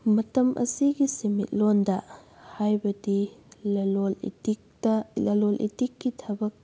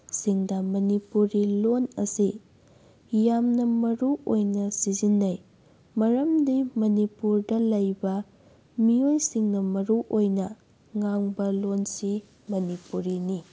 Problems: background sounds at intervals